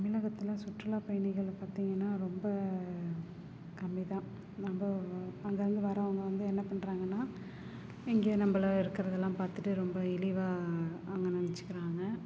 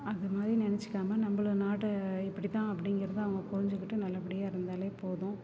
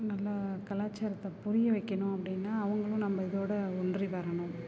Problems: low volume